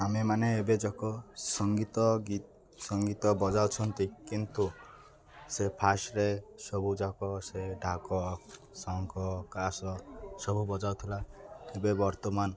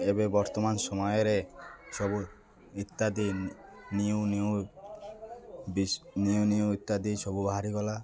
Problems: constant background noise, continuous background conversations